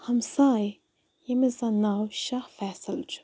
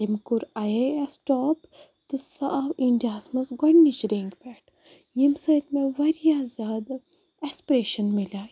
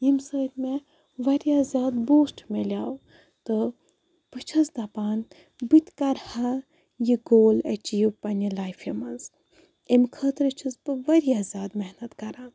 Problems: none marked